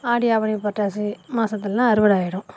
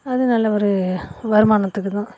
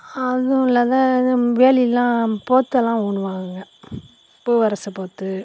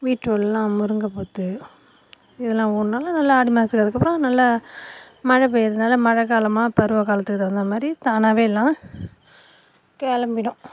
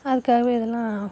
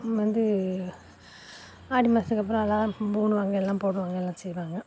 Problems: constant background noise